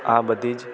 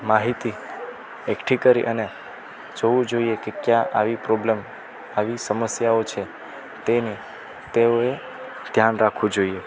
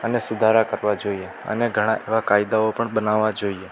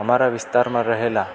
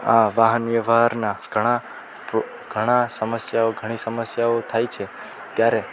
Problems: constant background noise